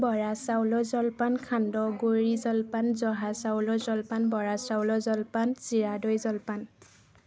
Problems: constant background noise, continuous background conversations